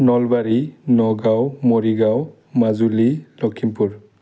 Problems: low volume